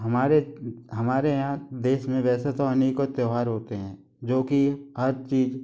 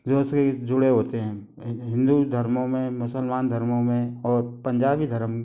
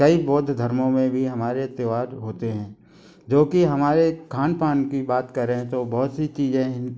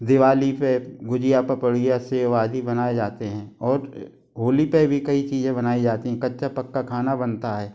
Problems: constant background noise